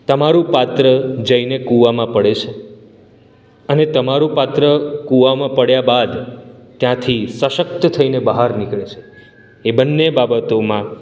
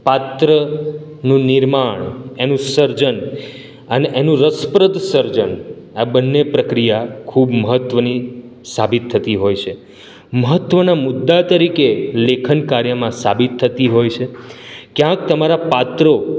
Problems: none marked